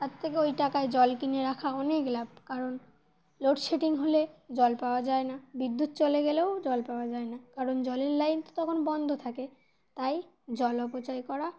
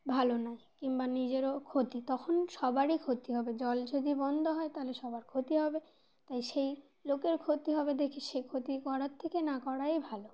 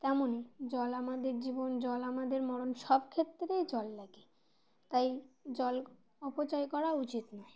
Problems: constant background noise